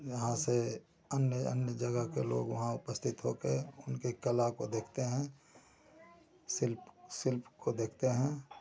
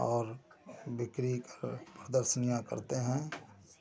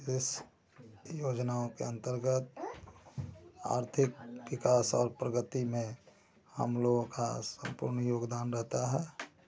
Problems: constant background noise